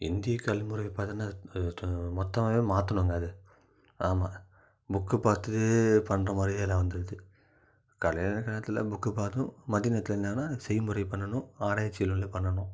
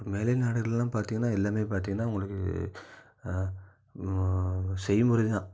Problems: low volume